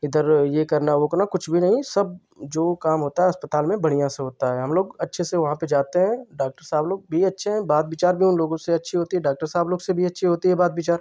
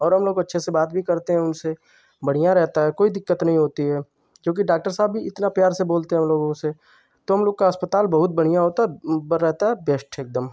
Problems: constant background noise